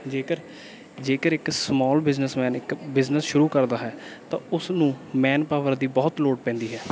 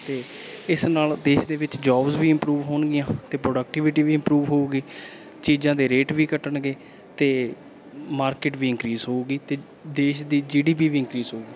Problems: background sounds at intervals